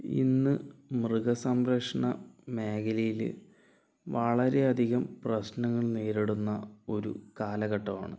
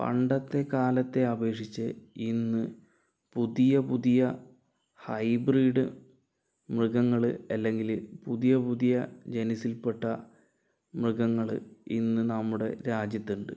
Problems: low volume